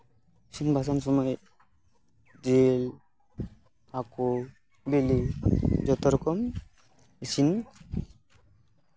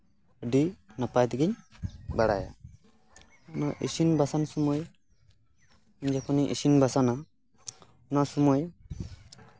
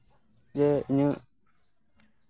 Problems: none marked